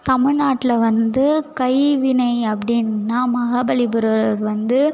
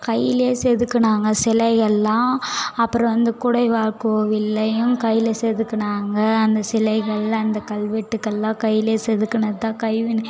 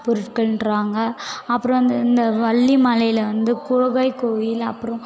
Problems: none marked